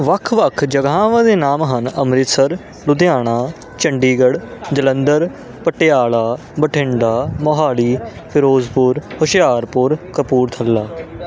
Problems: constant background noise